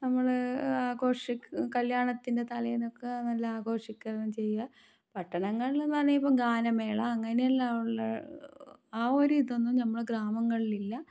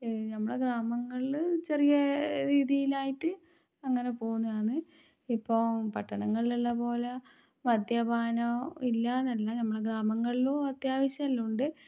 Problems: low volume